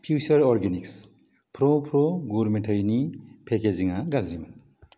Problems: low volume